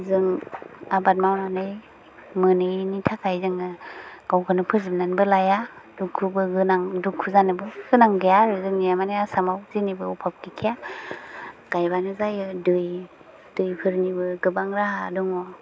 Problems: low volume